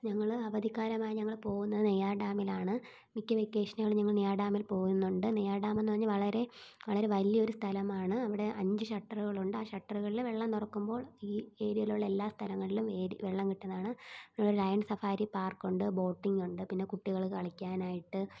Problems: low volume